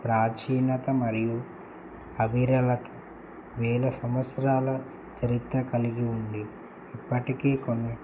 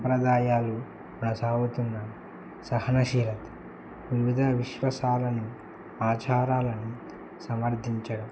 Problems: none marked